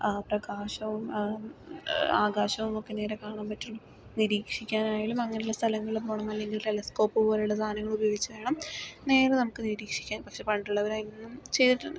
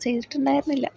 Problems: background sounds at intervals, low volume